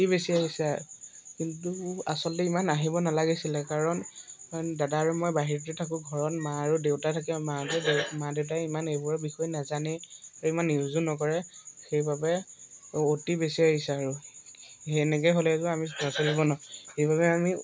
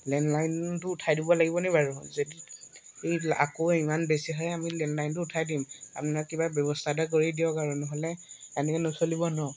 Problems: constant background noise, background conversations at intervals